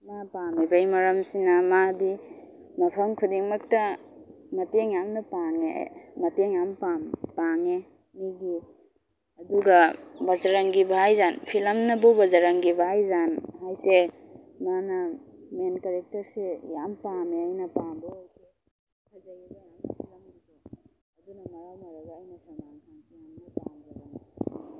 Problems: low volume